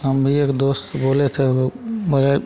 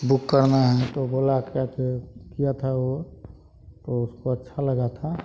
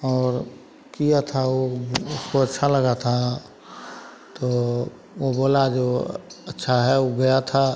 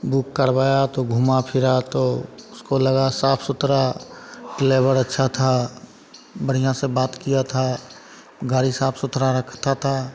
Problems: constant background noise, continuous background conversations